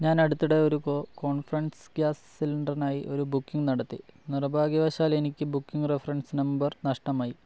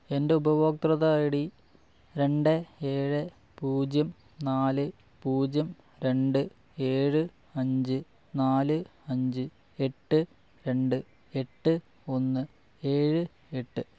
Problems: low volume